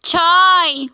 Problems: constant background noise